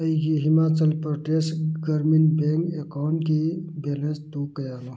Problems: none marked